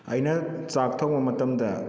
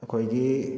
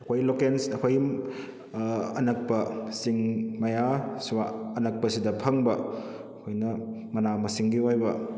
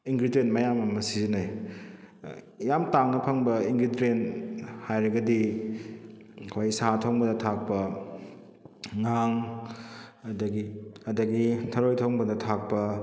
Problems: none marked